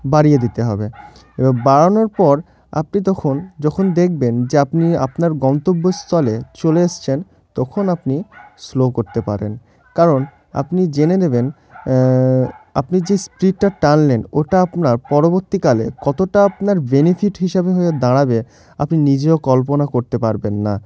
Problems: constant background noise